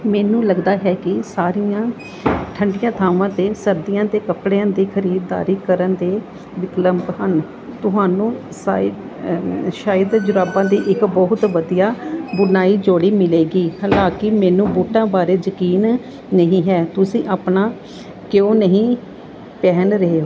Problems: constant background noise